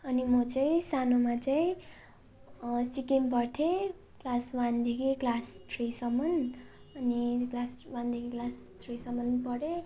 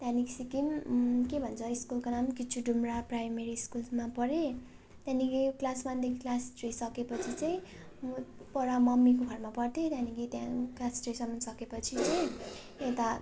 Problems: constant background noise, continuous background conversations